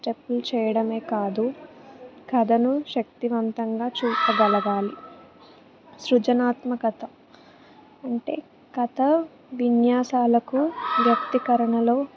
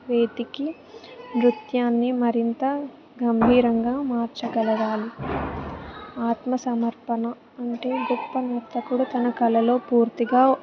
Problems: background sounds at intervals, background conversations at intervals